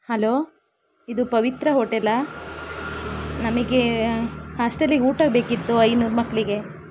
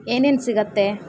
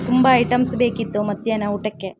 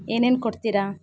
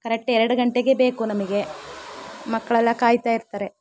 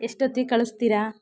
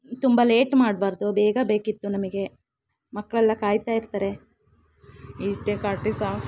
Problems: constant background noise